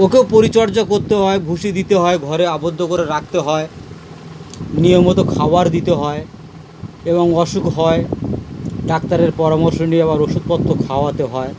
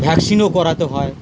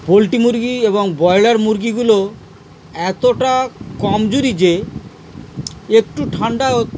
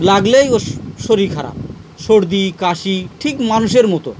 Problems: constant background noise, background conversations at intervals